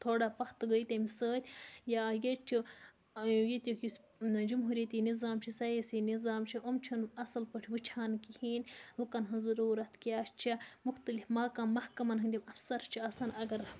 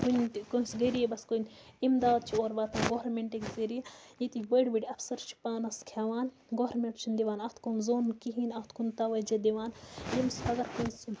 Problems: background sounds at intervals, low volume